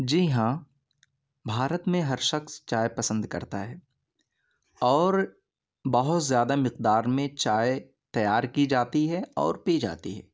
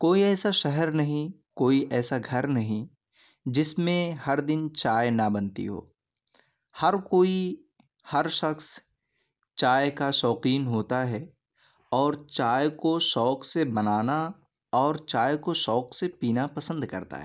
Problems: none marked